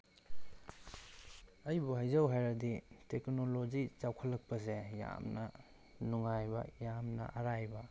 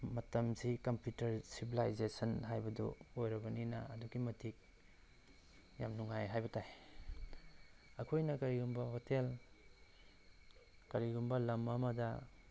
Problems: background sounds at intervals